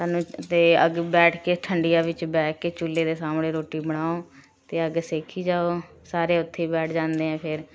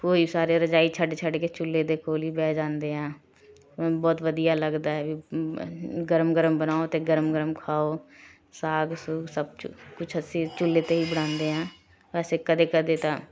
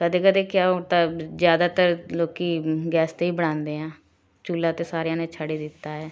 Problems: background sounds at intervals, continuous background conversations